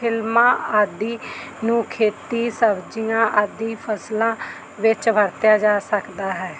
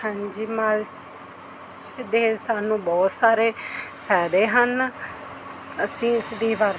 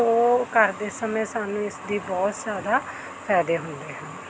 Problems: none marked